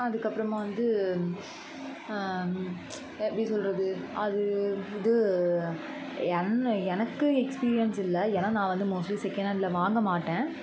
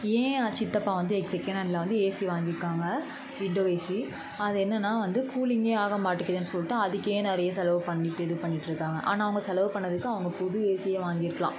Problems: constant background noise, continuous background conversations